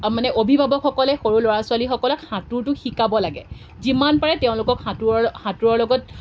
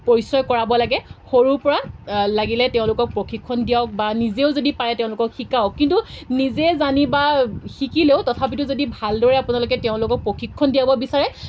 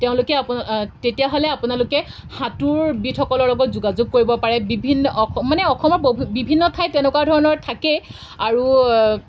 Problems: background sounds at intervals